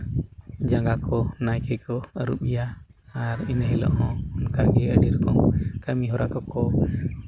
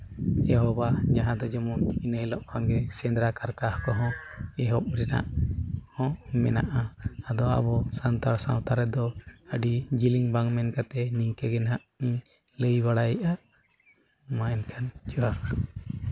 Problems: none marked